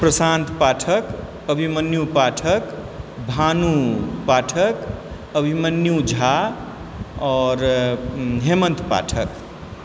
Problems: background sounds at intervals